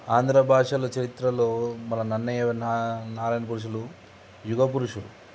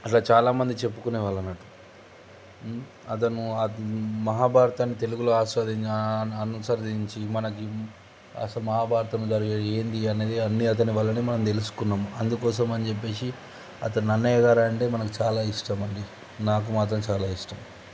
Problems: none marked